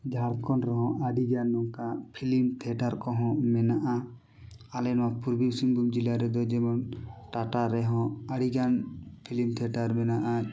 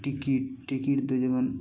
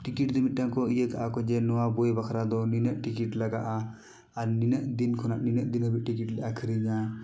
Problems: none marked